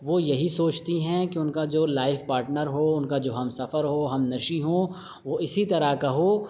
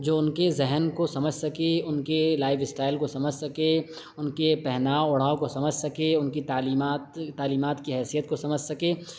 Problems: none marked